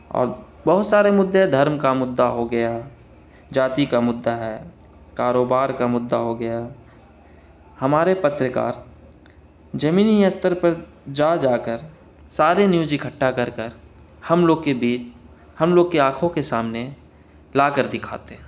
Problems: none marked